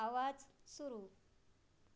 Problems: low volume